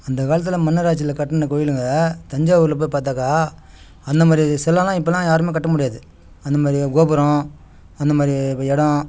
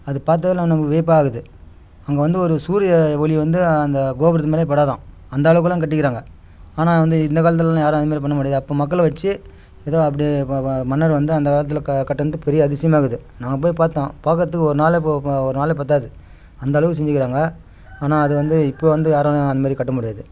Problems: background sounds at intervals